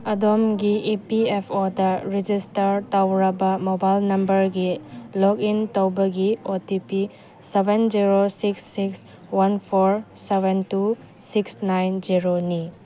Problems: none marked